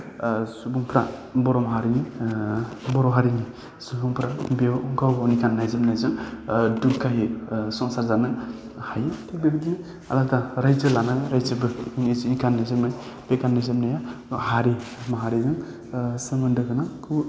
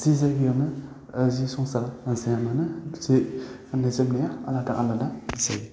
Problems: low volume